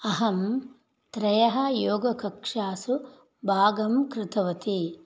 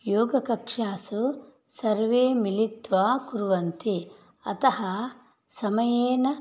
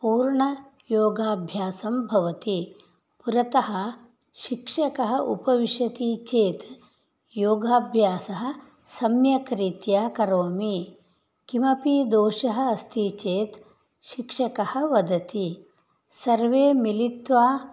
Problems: none marked